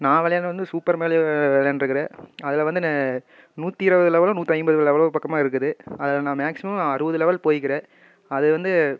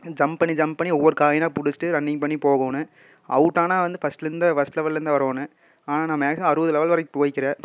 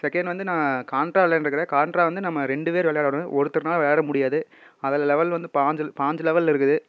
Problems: none marked